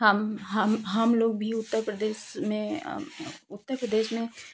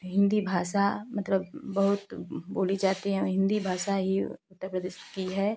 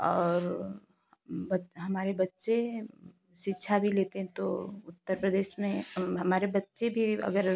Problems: constant background noise